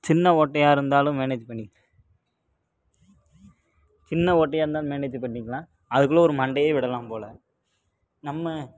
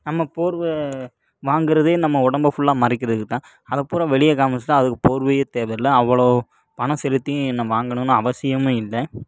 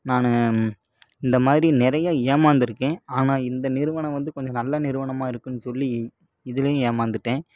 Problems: low volume